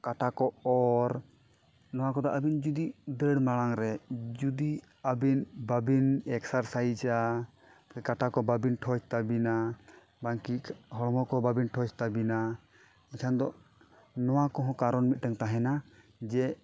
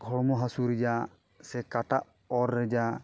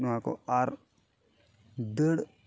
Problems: background sounds at intervals